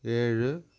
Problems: none marked